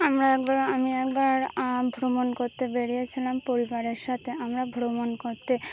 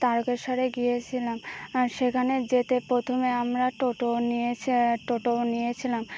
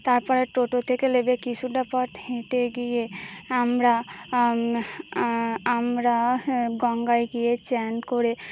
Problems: constant background noise, background conversations at intervals